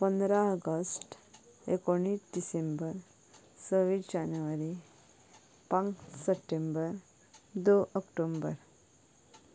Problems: low volume